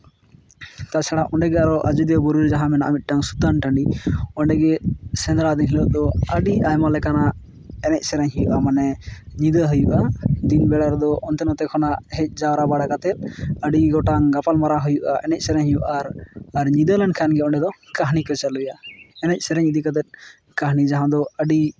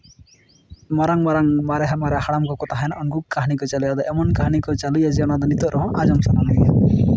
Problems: background sounds at intervals